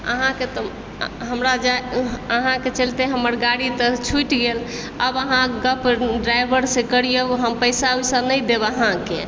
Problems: background sounds at intervals